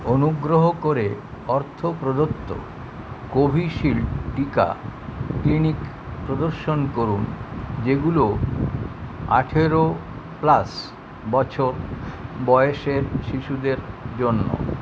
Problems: constant background noise